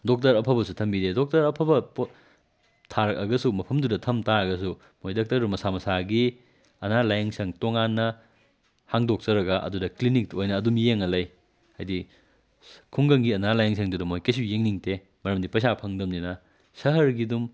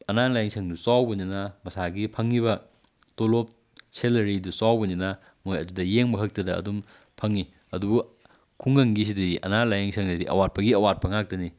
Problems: background sounds at intervals